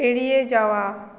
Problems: none marked